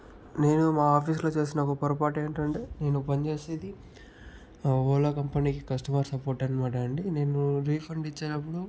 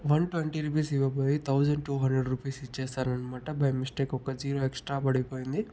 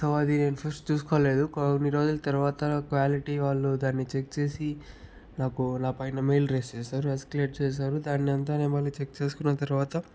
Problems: low volume